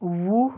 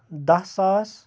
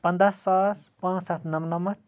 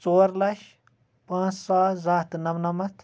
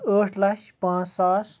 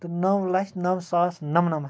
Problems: none marked